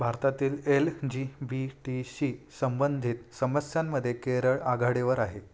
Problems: none marked